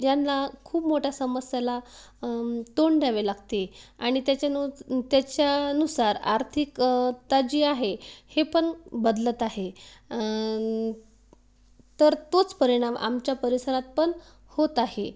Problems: none marked